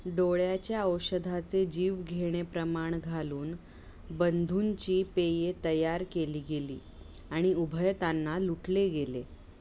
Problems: constant background noise